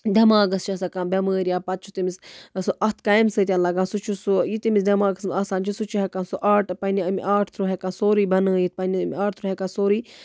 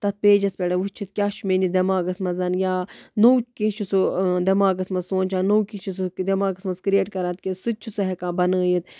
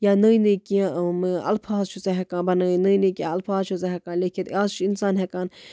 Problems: none marked